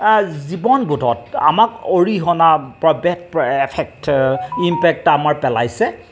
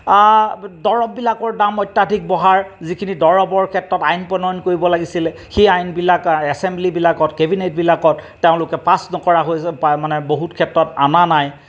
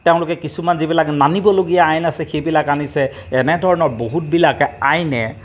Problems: background sounds at intervals